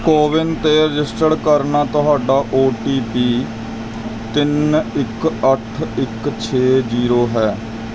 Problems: constant background noise